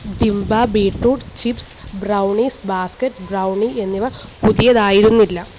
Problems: constant background noise